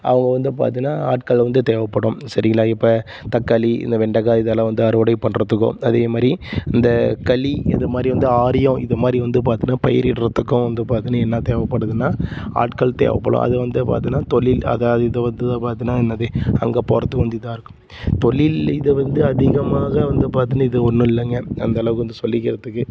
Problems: background sounds at intervals